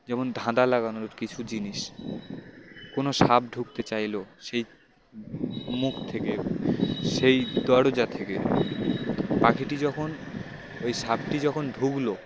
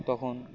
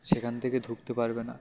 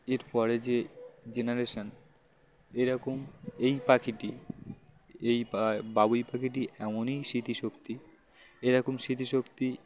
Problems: constant background noise